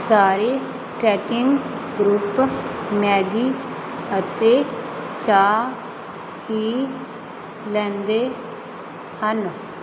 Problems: constant background noise